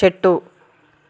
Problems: constant background noise